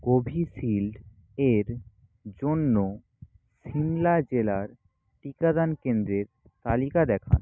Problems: constant background noise